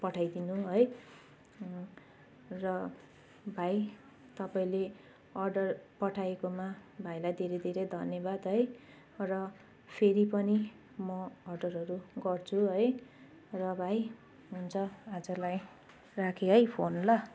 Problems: constant background noise